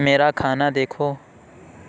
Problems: none marked